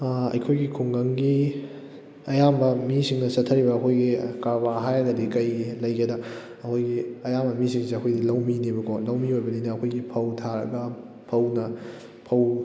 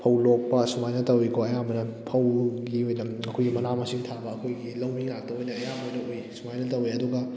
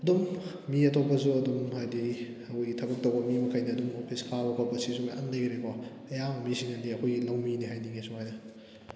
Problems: background conversations at intervals